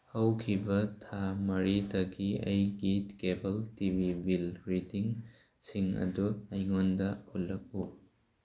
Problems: none marked